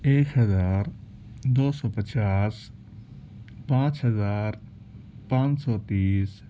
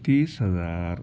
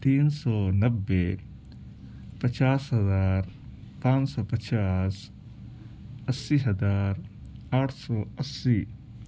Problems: constant background noise